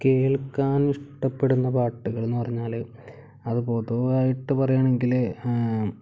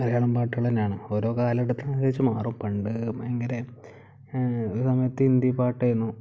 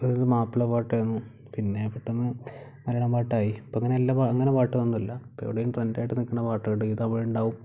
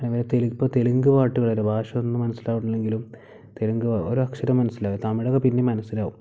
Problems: low volume